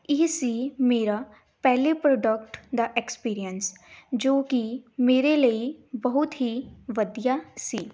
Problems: background sounds at intervals